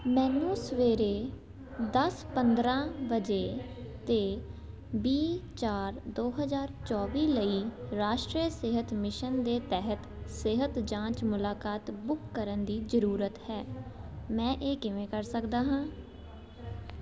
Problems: constant background noise